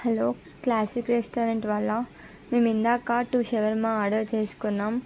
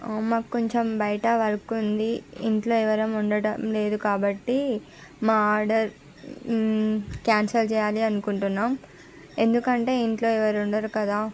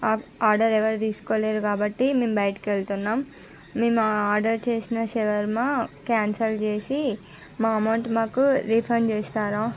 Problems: none marked